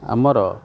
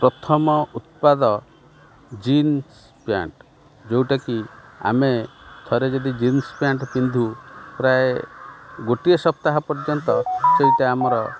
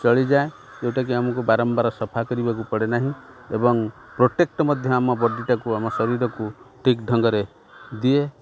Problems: none marked